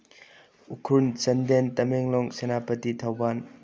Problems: low volume